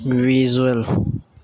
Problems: background sounds at intervals